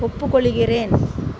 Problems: constant background noise